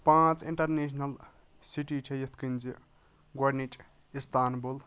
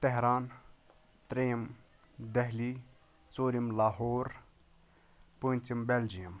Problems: none marked